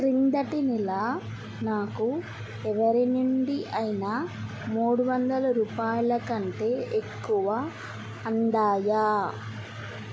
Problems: constant background noise